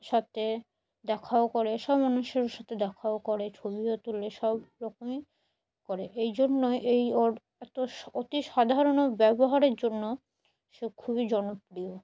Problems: none marked